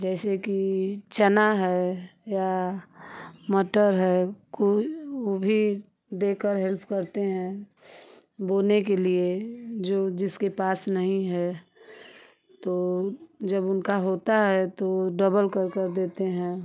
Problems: constant background noise